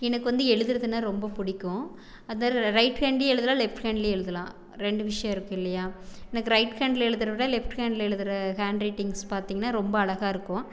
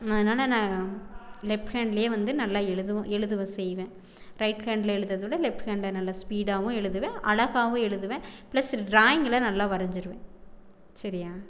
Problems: background conversations at intervals